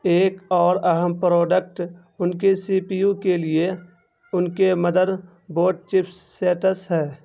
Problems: constant background noise